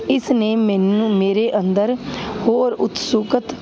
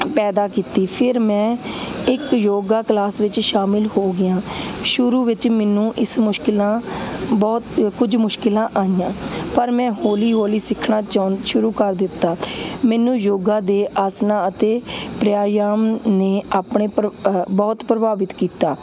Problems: constant background noise